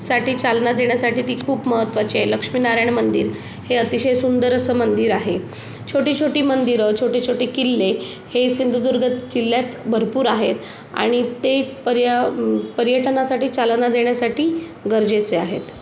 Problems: none marked